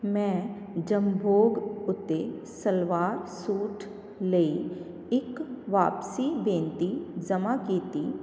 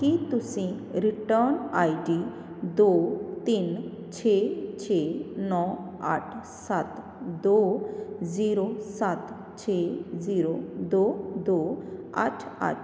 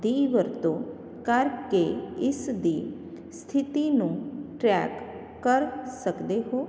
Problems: constant background noise